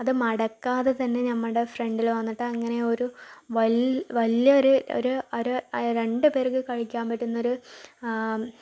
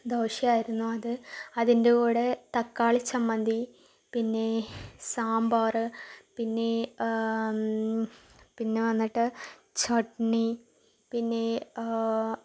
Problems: low volume